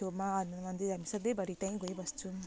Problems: constant background noise